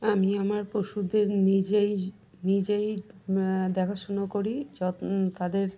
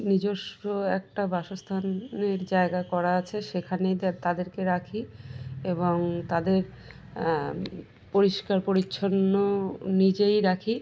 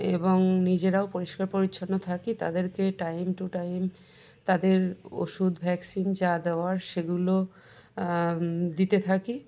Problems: background sounds at intervals